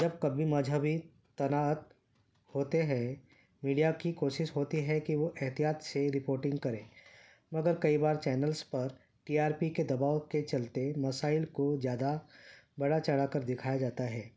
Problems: none marked